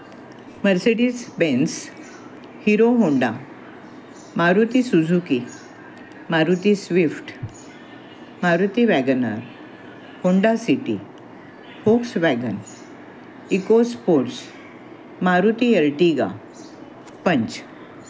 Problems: constant background noise, continuous background conversations